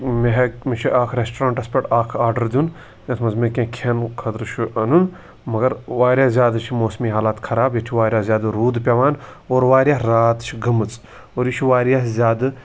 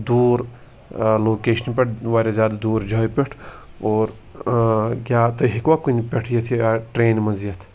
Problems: background sounds at intervals